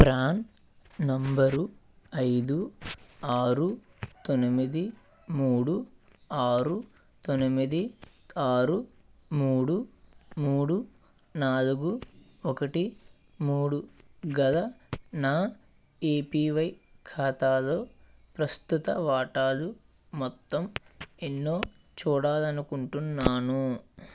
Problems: constant background noise